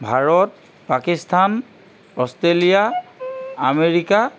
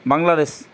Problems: background sounds at intervals